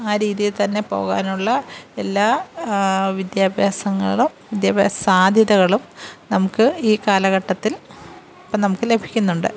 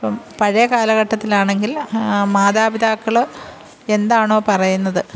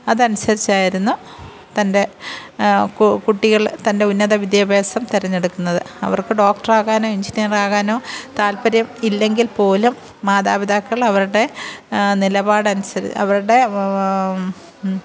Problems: background sounds at intervals